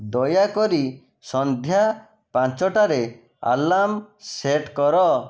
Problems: none marked